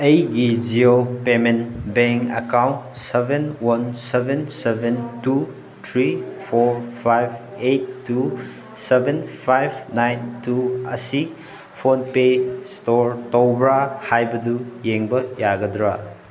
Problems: background sounds at intervals